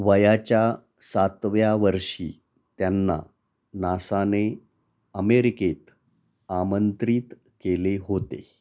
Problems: none marked